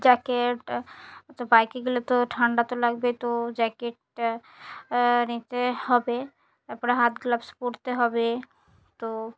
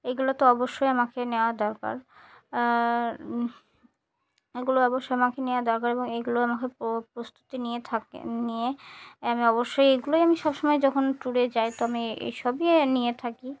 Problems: none marked